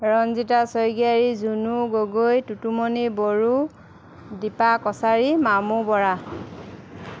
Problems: constant background noise